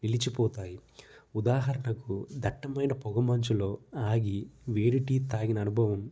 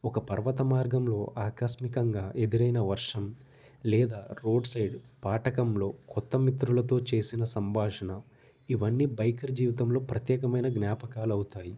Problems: none marked